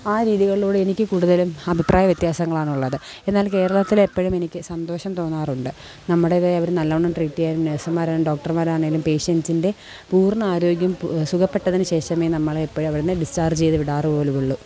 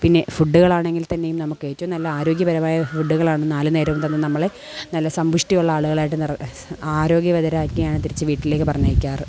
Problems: background sounds at intervals